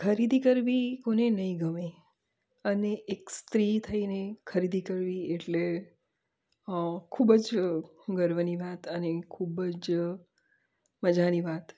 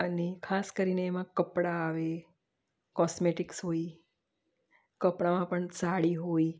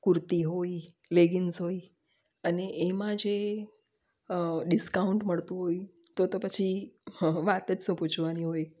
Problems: none marked